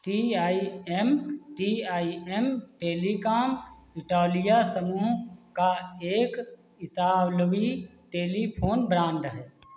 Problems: constant background noise